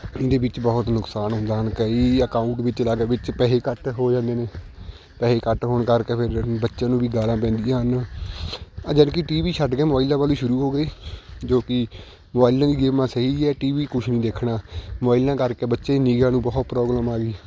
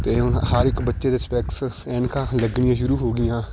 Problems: constant background noise